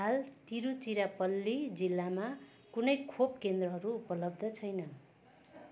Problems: background sounds at intervals